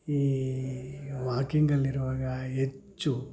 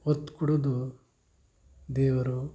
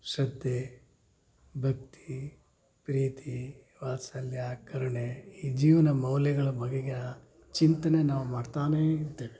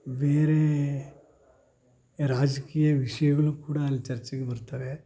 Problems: low volume